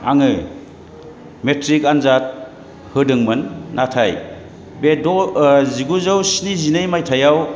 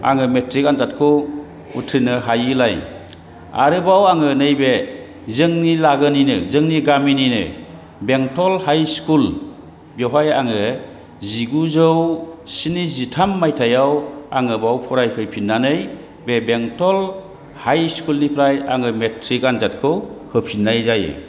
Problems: background sounds at intervals, background conversations at intervals